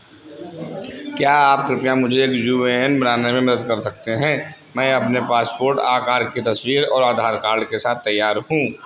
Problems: constant background noise